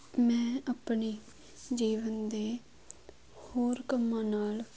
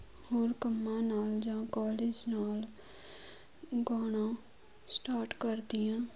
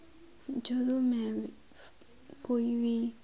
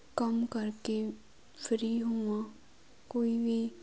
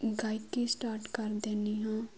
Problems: none marked